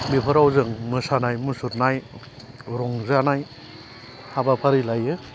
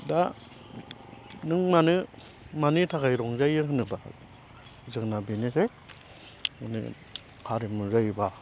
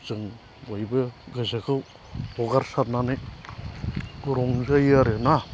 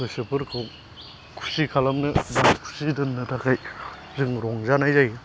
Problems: constant background noise